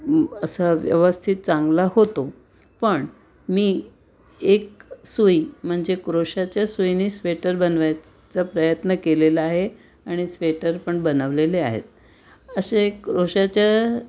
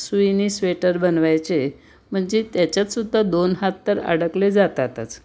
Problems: background sounds at intervals